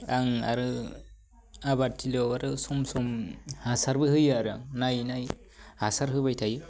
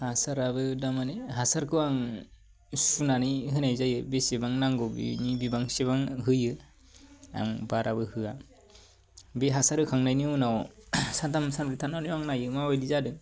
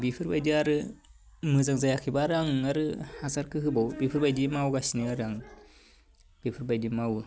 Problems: low volume